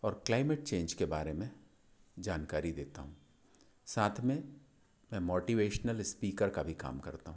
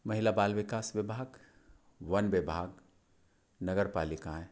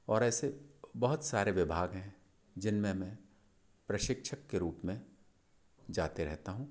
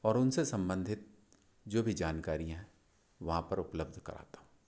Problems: constant background noise